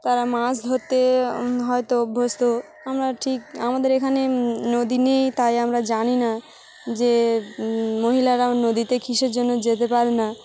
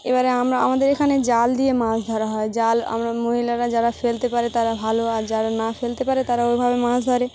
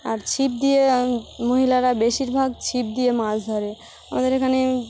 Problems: constant background noise, continuous background conversations